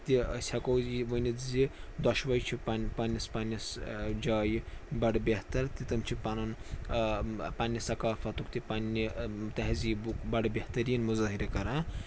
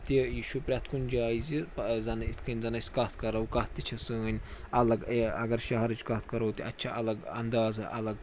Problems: constant background noise, background conversations at intervals